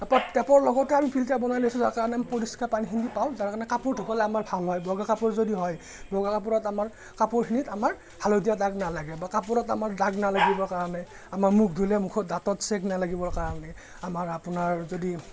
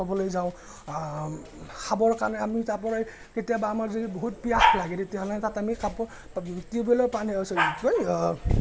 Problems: none marked